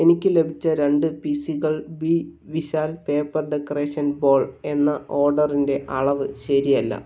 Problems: none marked